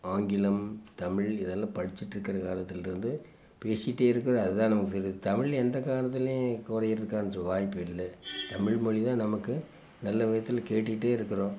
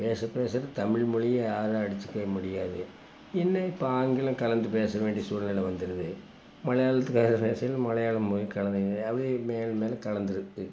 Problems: constant background noise